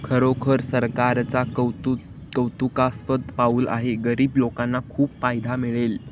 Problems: constant background noise